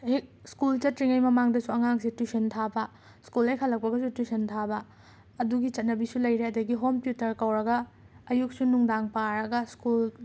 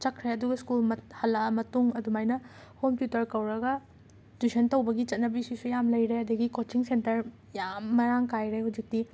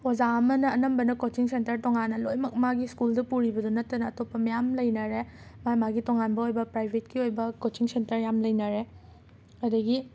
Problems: constant background noise